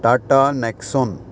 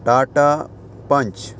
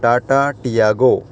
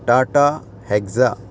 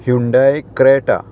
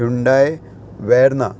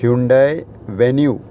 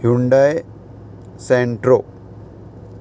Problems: constant background noise